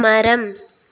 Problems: none marked